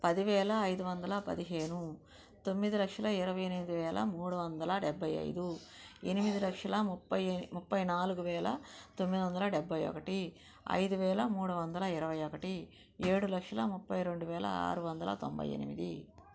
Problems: background sounds at intervals, low volume